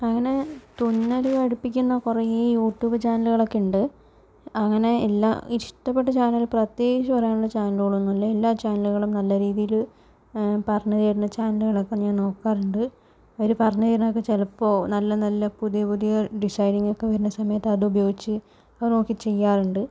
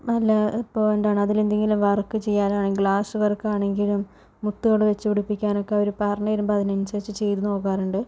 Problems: constant background noise, low volume